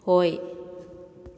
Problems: echo